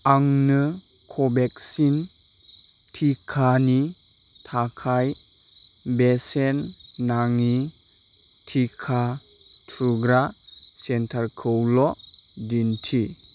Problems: constant background noise